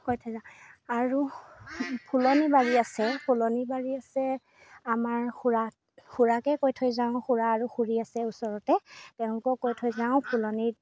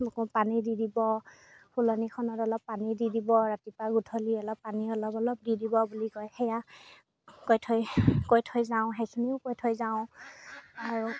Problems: background sounds at intervals